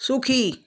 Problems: none marked